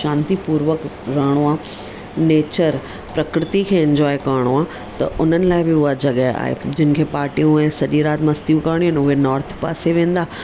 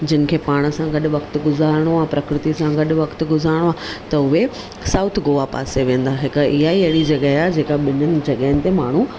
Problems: none marked